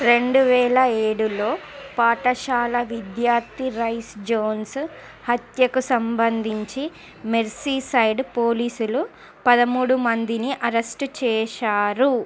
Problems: constant background noise